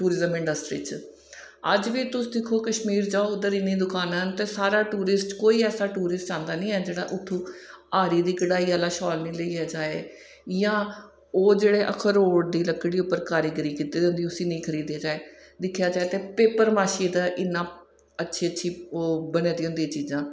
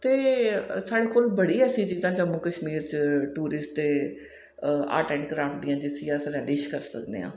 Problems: echo